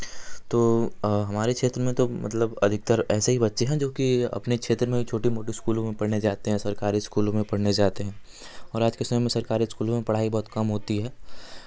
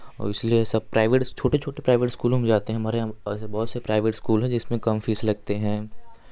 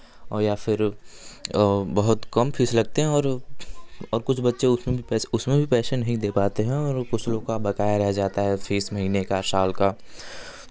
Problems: none marked